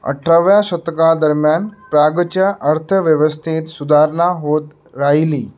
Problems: background sounds at intervals